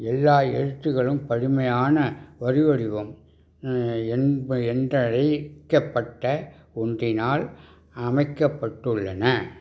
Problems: none marked